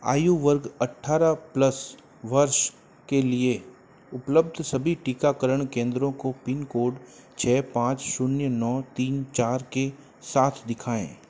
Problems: constant background noise